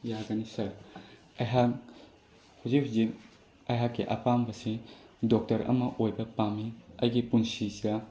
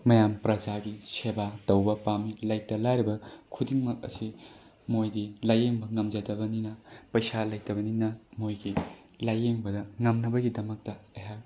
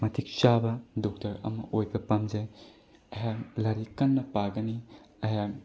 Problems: none marked